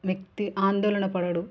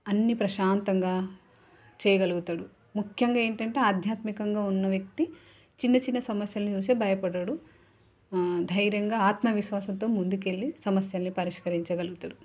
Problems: background conversations at intervals